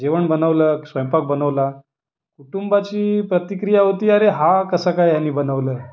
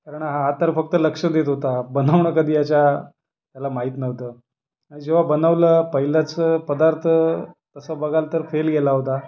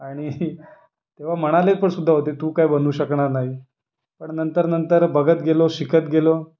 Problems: background sounds at intervals, background conversations at intervals